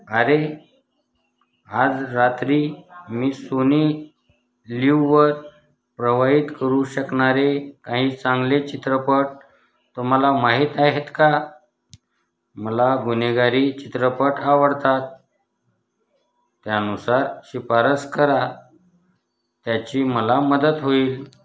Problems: background sounds at intervals, background conversations at intervals